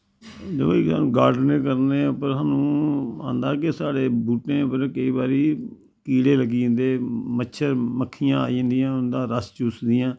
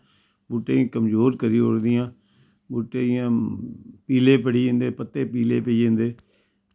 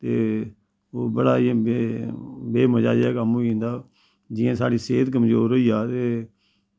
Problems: constant background noise